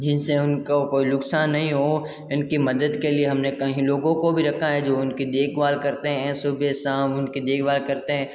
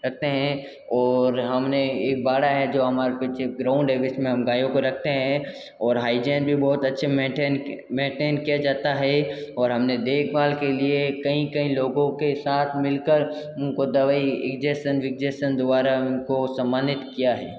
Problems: constant background noise, echo